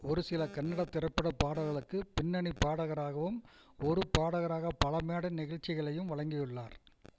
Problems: constant background noise